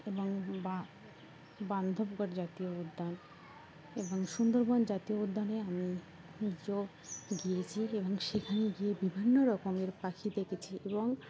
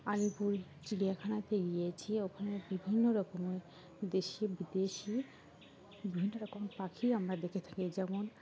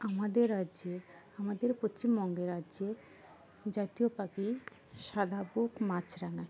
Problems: constant background noise